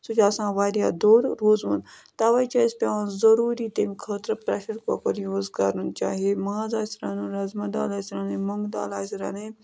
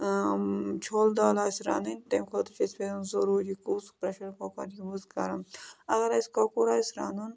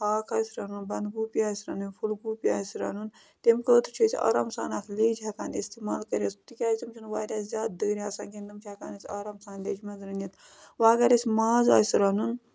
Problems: constant background noise